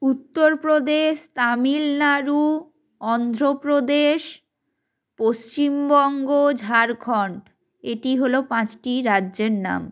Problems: none marked